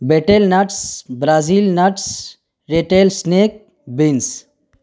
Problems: none marked